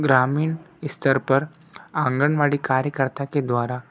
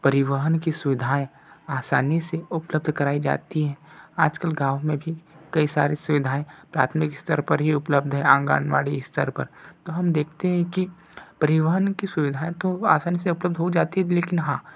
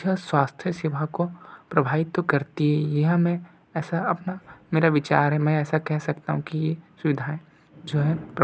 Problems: background sounds at intervals